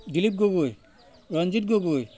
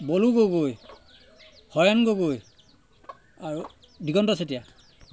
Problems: constant background noise